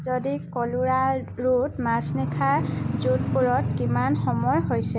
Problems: constant background noise